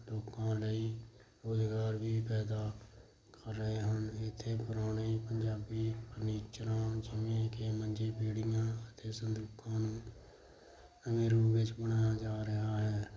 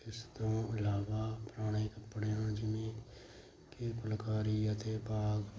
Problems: none marked